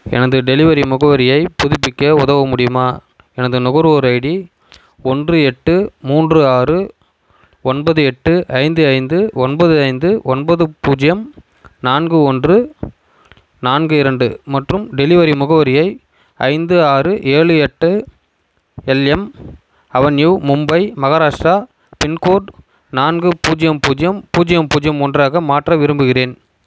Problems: constant background noise